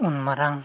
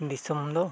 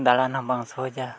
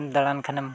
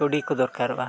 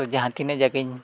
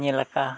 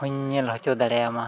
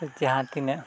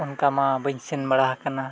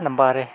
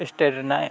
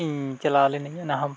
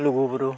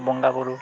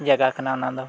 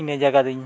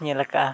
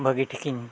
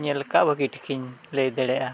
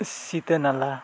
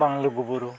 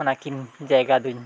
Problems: background sounds at intervals